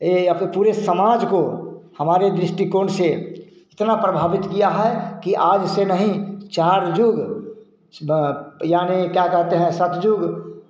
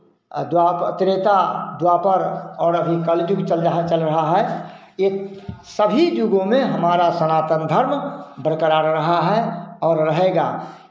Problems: none marked